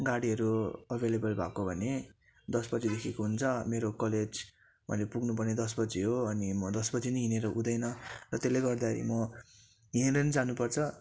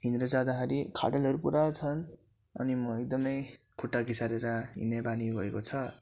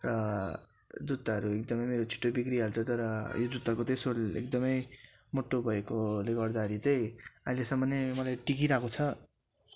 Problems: constant background noise